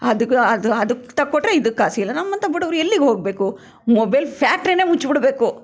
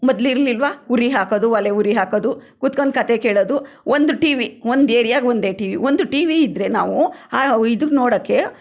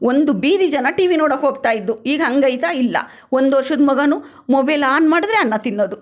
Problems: none marked